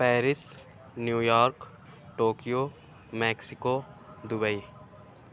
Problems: none marked